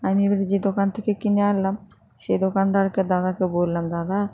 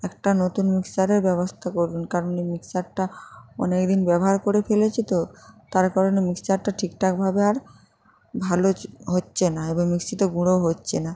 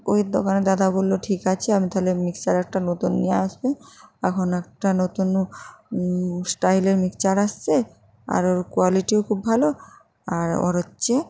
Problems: constant background noise